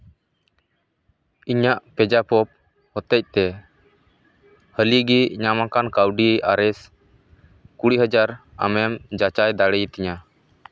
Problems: none marked